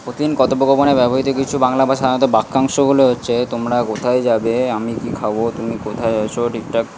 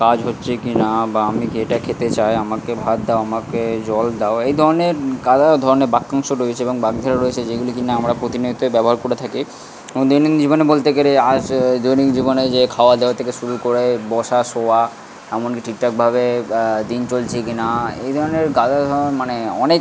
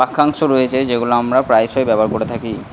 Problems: constant background noise